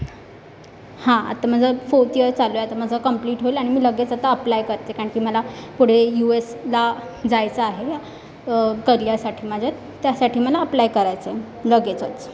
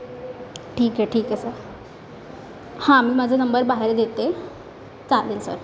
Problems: constant background noise, background conversations at intervals